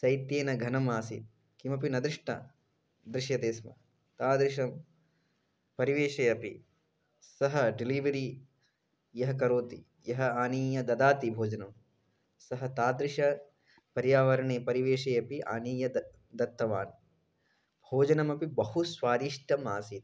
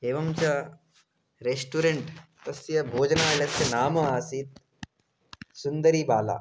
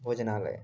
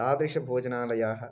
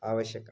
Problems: constant background noise